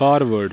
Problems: constant background noise